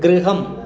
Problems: constant background noise